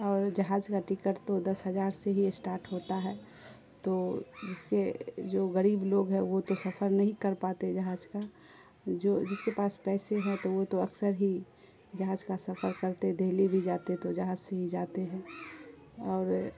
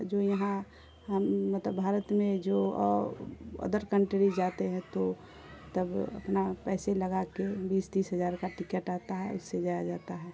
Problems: constant background noise